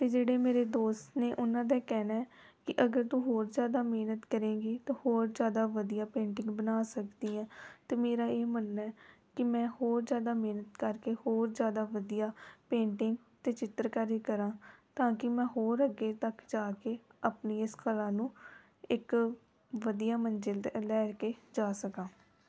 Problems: background sounds at intervals